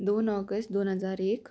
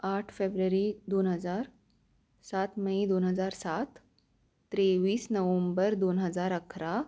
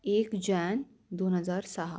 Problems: constant background noise